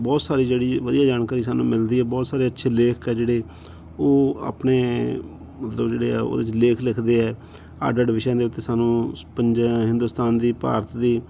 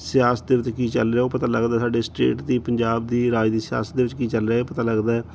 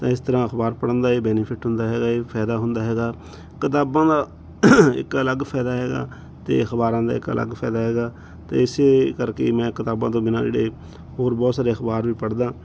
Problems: background sounds at intervals